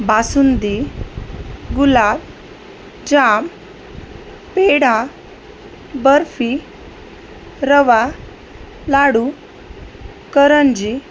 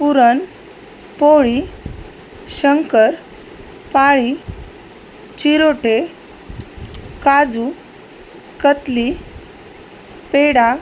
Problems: constant background noise